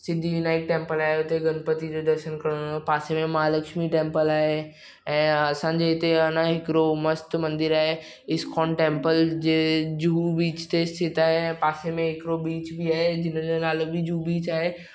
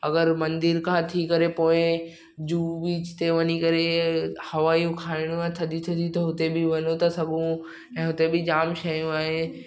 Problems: none marked